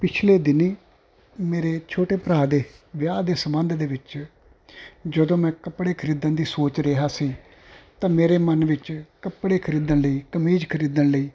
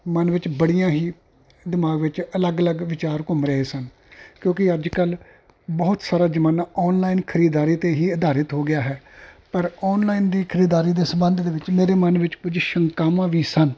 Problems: constant background noise